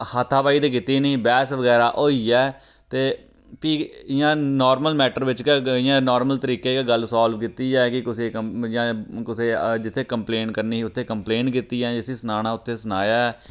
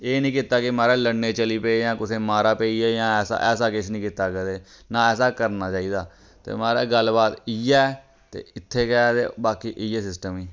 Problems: none marked